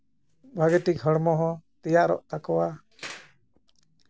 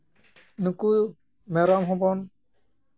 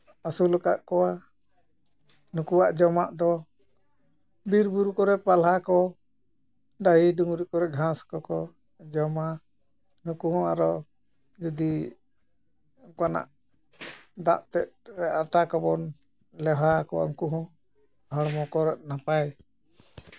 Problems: none marked